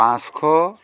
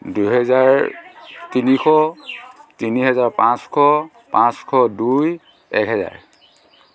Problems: constant background noise, continuous background conversations